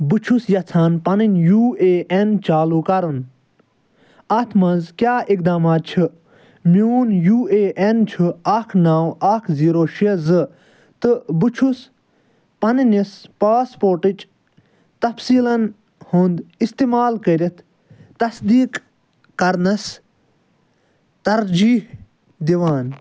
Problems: none marked